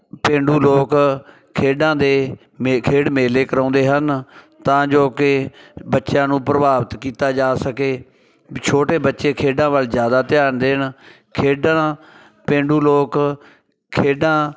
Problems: none marked